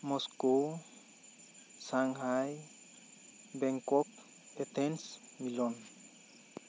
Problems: constant background noise